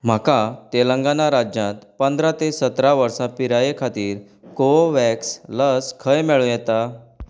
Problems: none marked